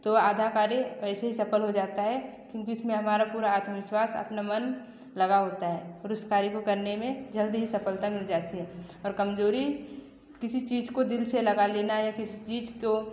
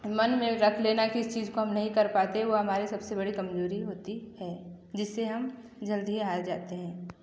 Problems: echo